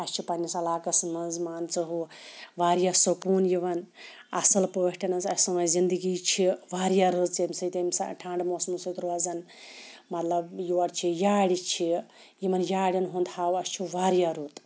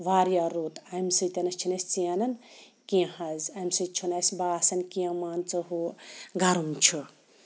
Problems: background sounds at intervals